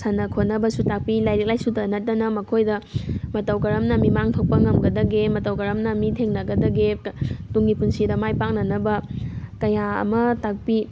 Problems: background sounds at intervals